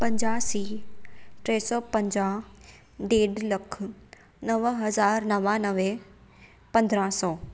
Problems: none marked